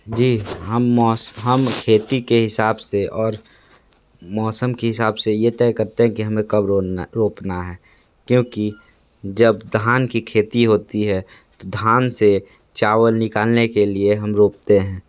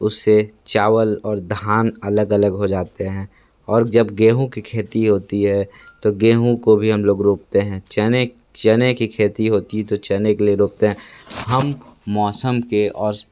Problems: background sounds at intervals